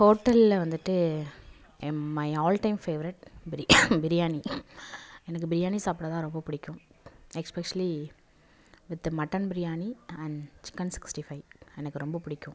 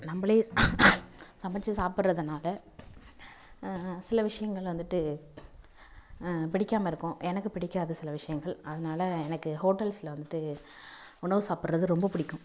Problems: none marked